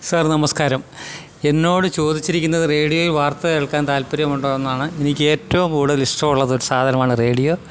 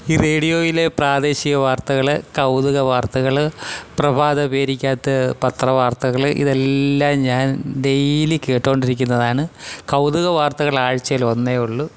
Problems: none marked